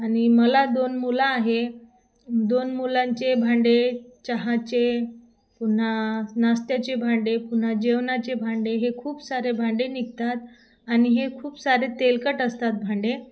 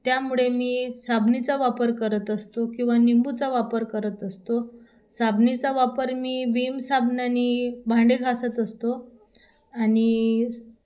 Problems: constant background noise, background conversations at intervals